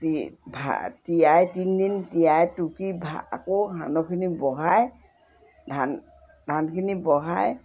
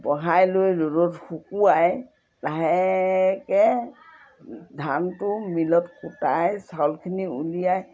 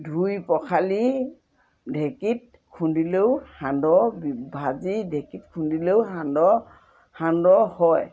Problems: constant background noise